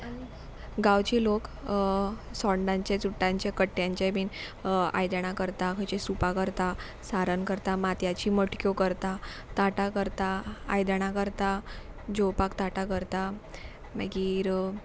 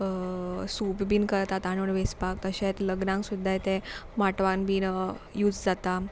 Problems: background sounds at intervals